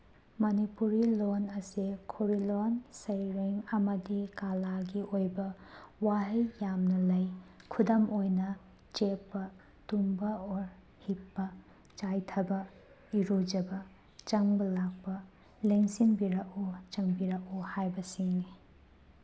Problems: none marked